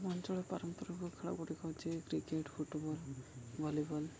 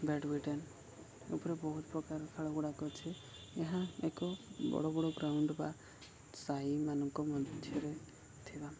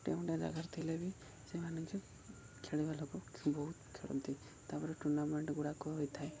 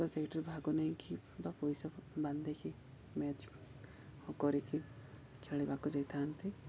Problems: none marked